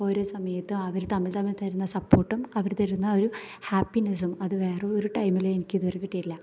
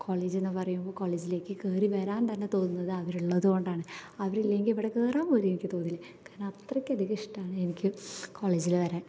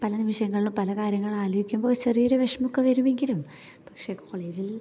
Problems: none marked